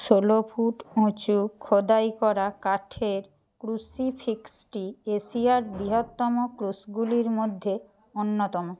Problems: constant background noise